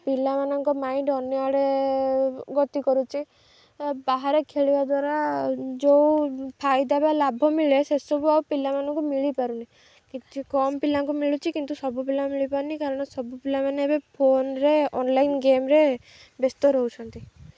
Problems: none marked